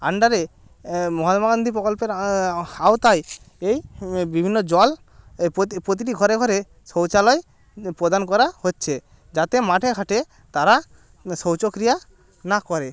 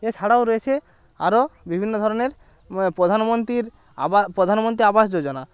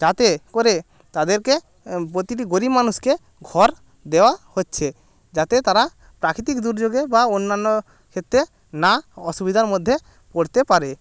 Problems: constant background noise, background conversations at intervals